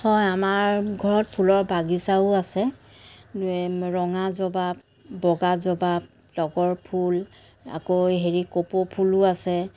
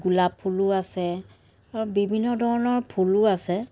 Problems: none marked